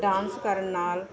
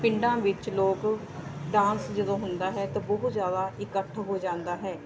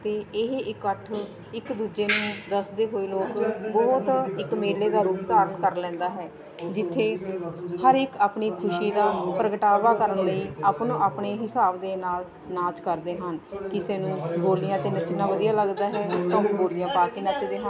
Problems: continuous background conversations